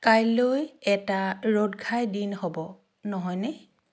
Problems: none marked